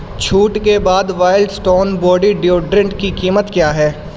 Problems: constant background noise